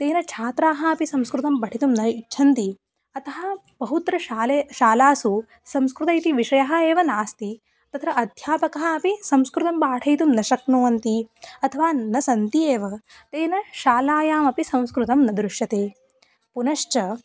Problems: background sounds at intervals, background conversations at intervals